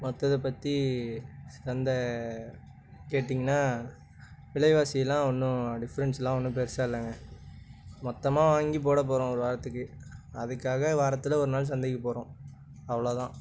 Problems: background conversations at intervals